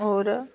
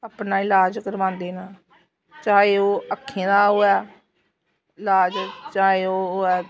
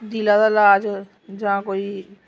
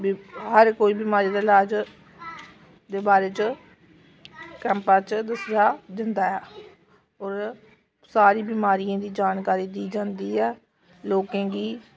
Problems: constant background noise